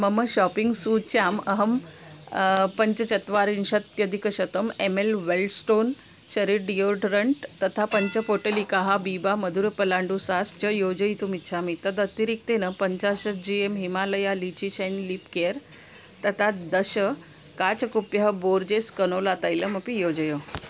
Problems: constant background noise